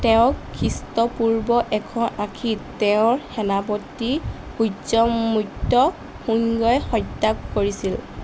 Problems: none marked